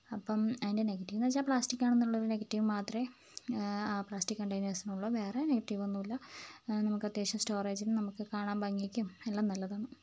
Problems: background sounds at intervals